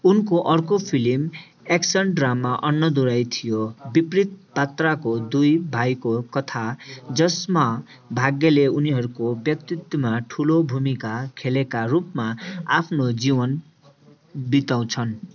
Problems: continuous background conversations